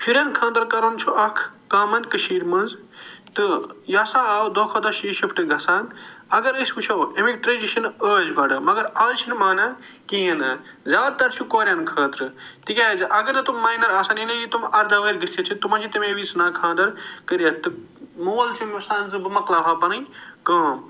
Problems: none marked